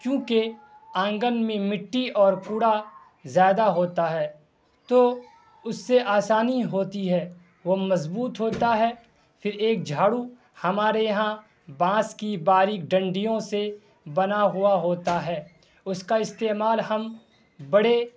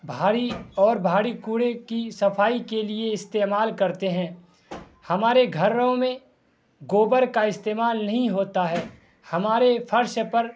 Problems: constant background noise